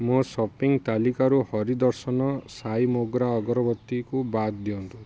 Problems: none marked